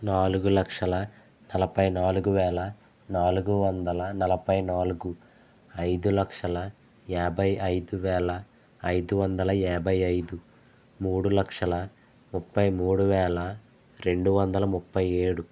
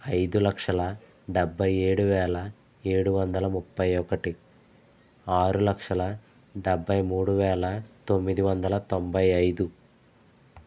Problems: constant background noise